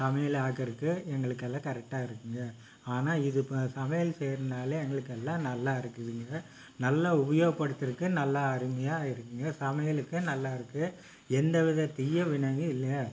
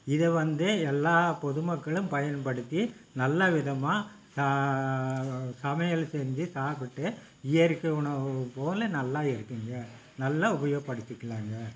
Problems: none marked